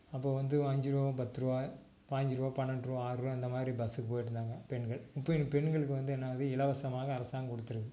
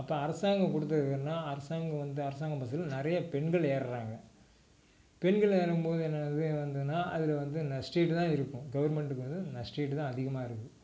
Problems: low volume